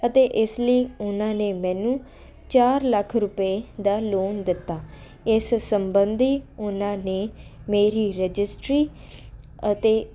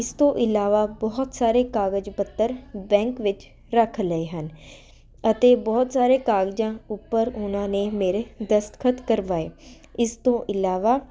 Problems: constant background noise